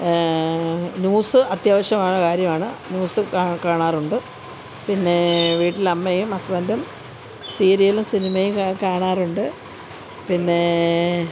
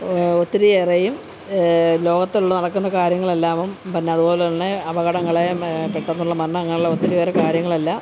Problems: constant background noise, background conversations at intervals